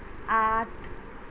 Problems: constant background noise